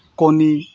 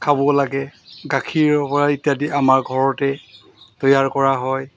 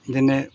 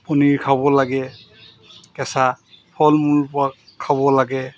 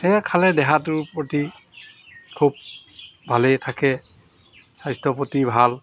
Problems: constant background noise